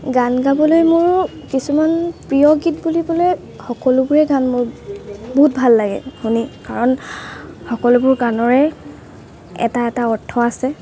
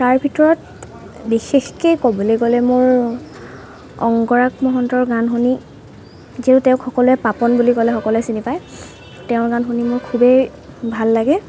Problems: constant background noise